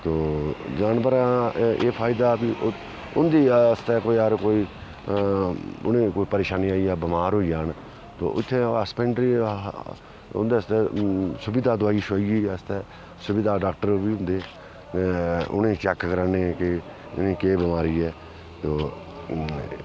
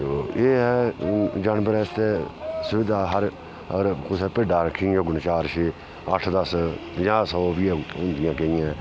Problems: constant background noise